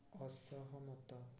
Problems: low volume